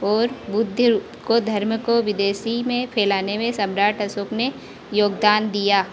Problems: constant background noise